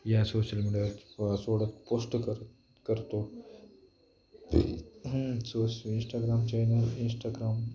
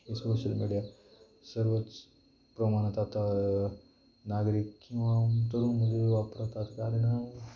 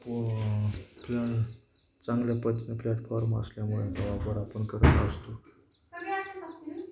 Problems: constant background noise, background conversations at intervals